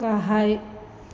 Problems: constant background noise